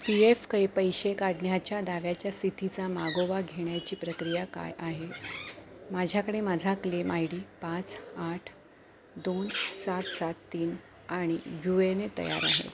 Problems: background sounds at intervals